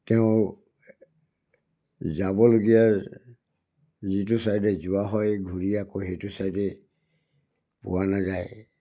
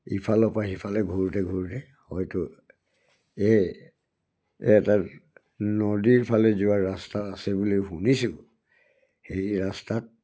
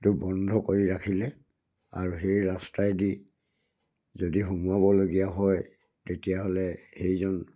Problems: none marked